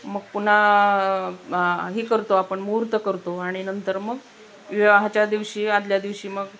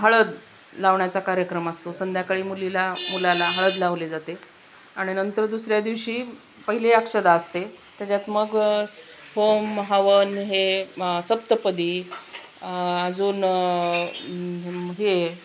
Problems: constant background noise